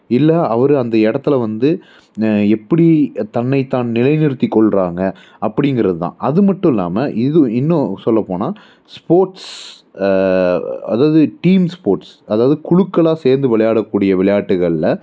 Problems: none marked